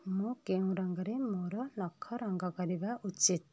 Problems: low volume